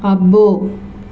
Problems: constant background noise